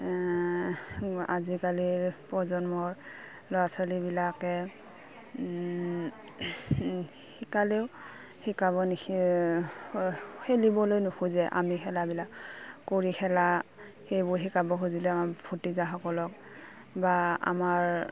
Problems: none marked